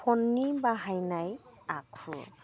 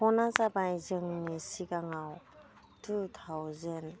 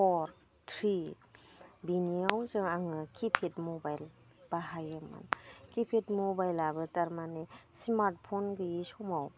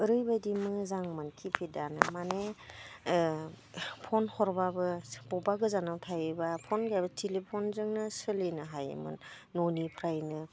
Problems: none marked